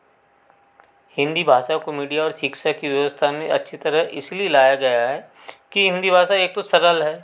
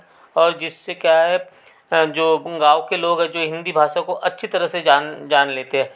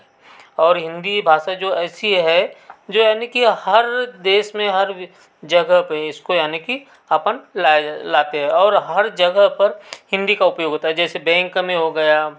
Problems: background sounds at intervals